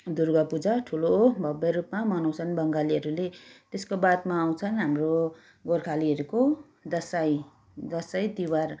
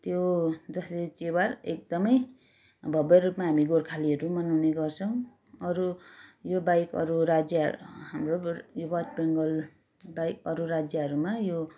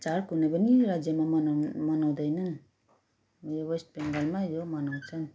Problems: background sounds at intervals